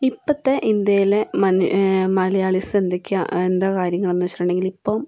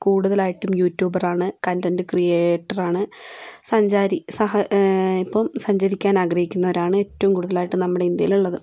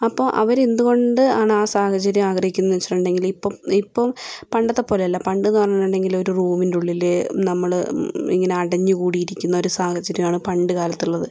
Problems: none marked